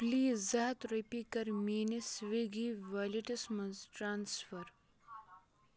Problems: continuous background conversations